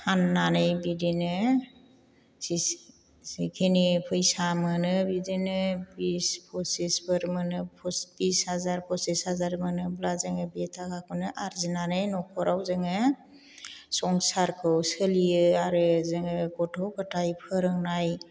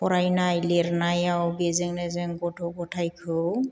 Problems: none marked